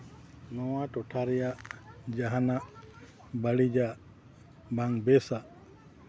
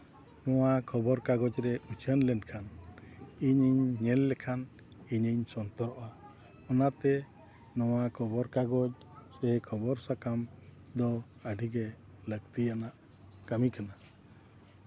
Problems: background conversations at intervals